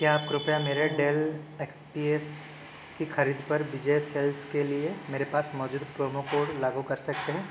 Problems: constant background noise